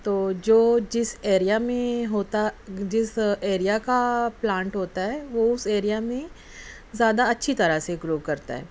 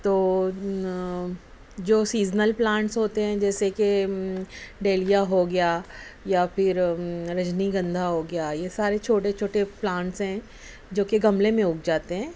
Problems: none marked